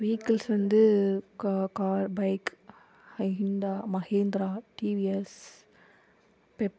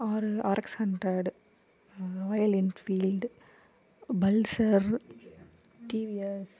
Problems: background conversations at intervals